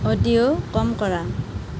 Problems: constant background noise